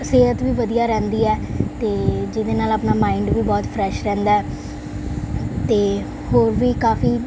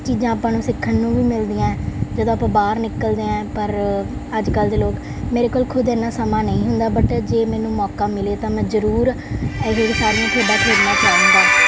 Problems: background sounds at intervals